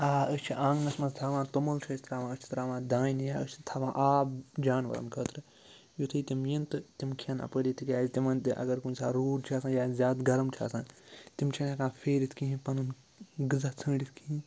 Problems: none marked